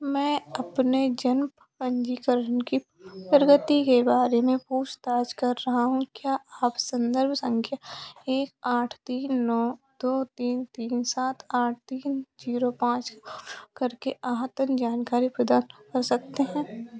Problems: none marked